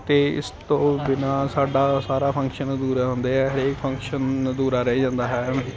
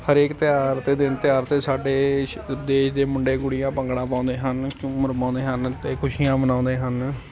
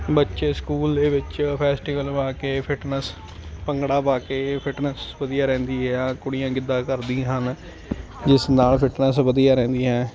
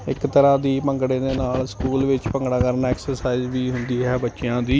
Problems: constant background noise